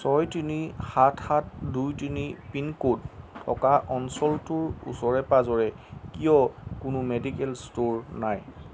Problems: none marked